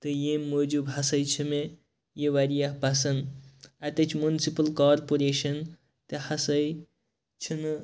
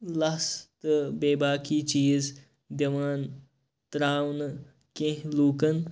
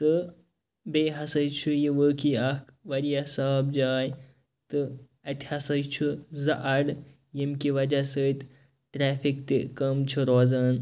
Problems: background sounds at intervals